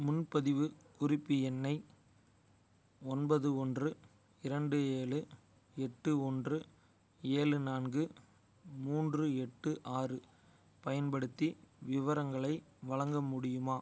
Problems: none marked